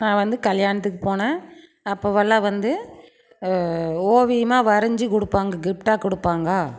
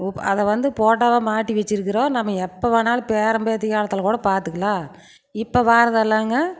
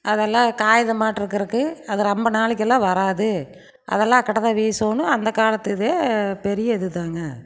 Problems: constant background noise